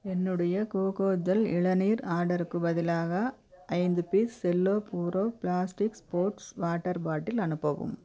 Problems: none marked